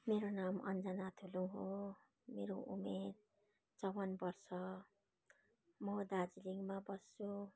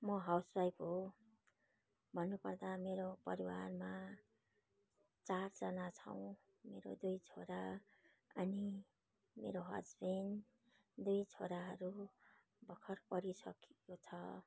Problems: background conversations at intervals